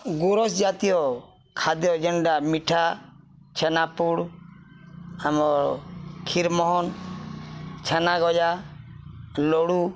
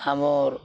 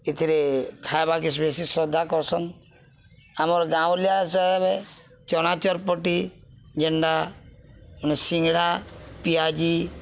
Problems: none marked